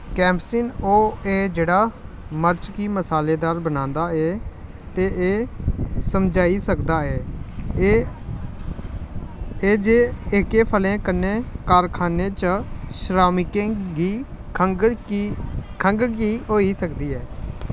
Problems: constant background noise